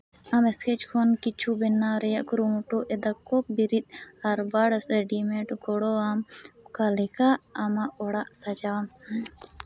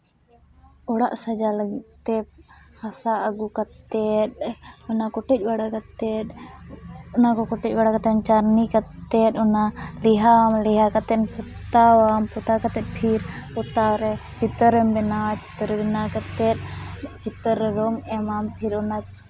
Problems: none marked